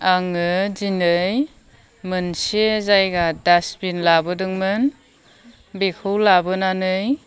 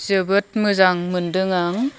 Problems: none marked